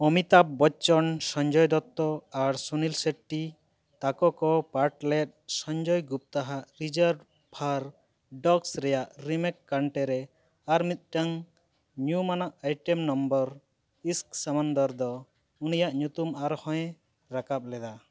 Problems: none marked